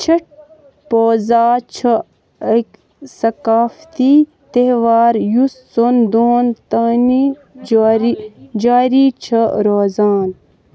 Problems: constant background noise